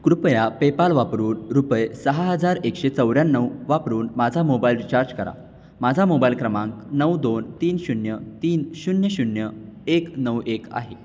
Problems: constant background noise, continuous background conversations